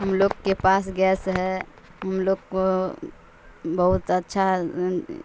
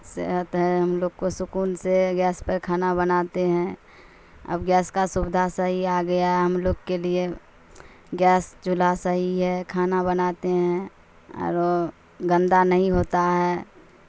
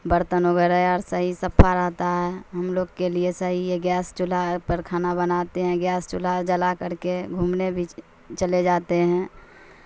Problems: constant background noise